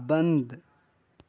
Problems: none marked